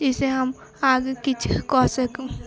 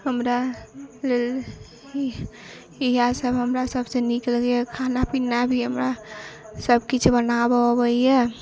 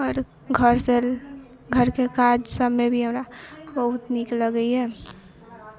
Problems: constant background noise, echo